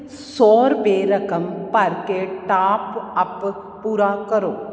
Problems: background conversations at intervals